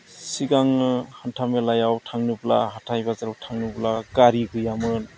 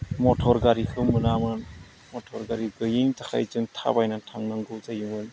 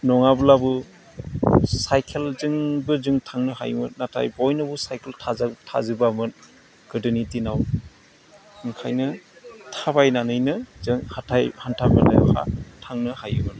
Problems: low volume